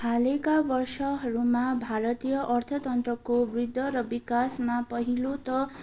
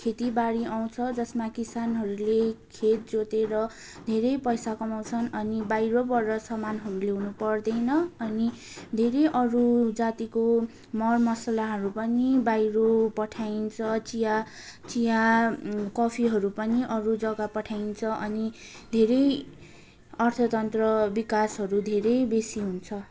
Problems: constant background noise